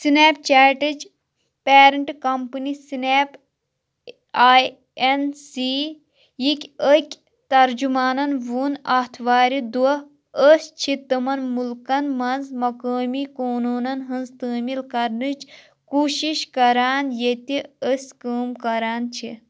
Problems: constant background noise